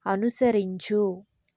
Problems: low volume